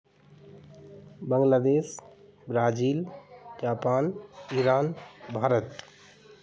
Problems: constant background noise